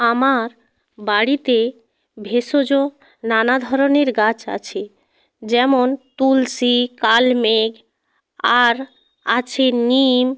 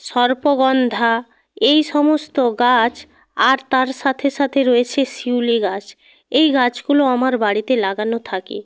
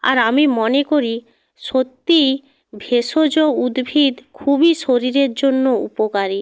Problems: none marked